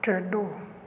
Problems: none marked